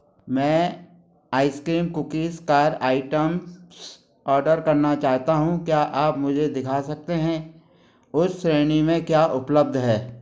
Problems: none marked